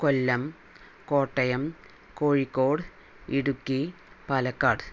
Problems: none marked